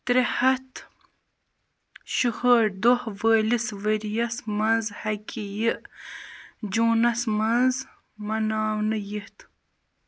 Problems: none marked